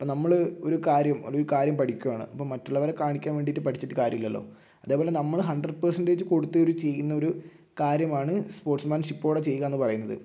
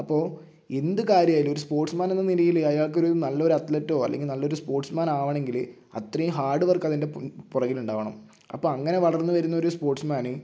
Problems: none marked